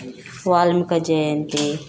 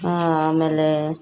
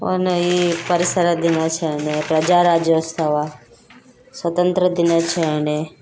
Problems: background sounds at intervals